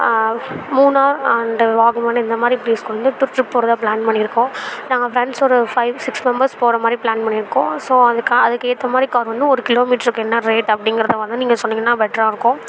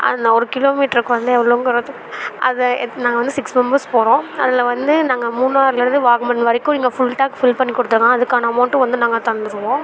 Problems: constant background noise, continuous background conversations